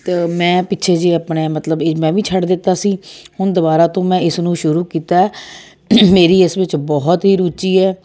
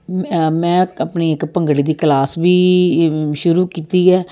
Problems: none marked